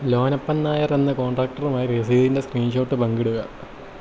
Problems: constant background noise, low volume